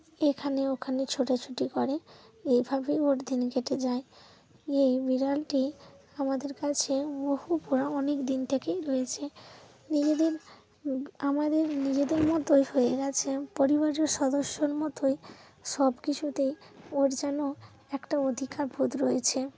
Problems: constant background noise